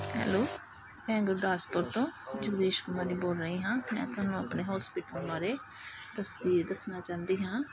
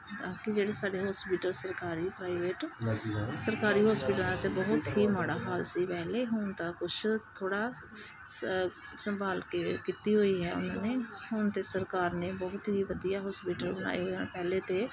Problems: constant background noise, background conversations at intervals